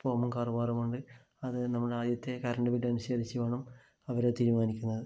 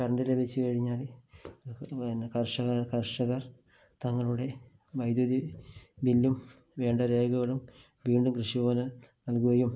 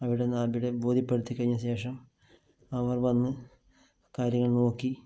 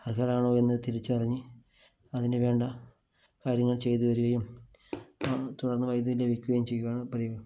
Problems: low volume